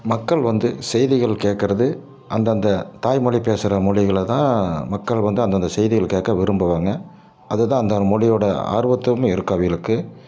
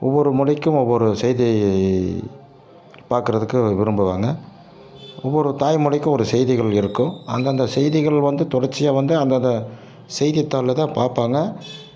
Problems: none marked